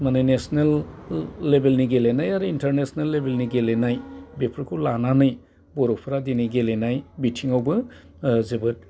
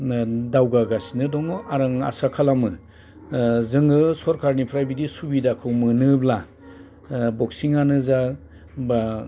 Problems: constant background noise